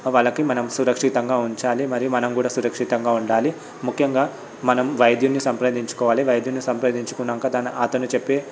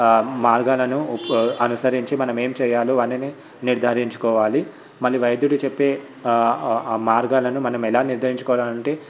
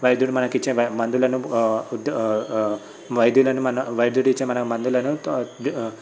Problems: background sounds at intervals, background conversations at intervals